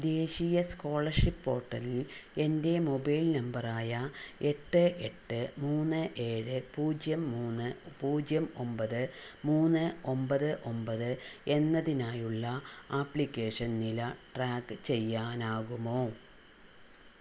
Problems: none marked